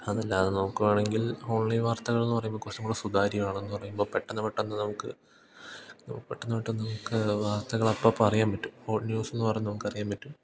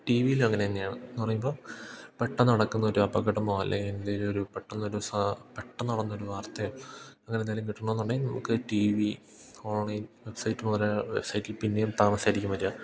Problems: background sounds at intervals